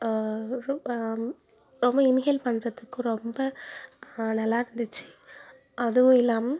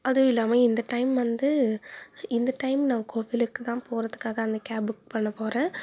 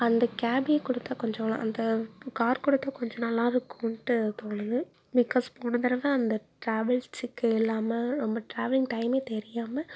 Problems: none marked